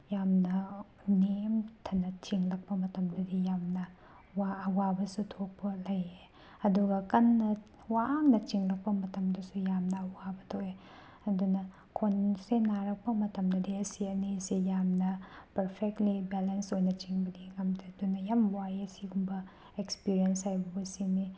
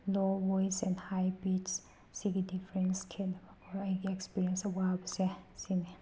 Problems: background sounds at intervals